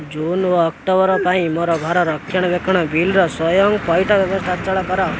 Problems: constant background noise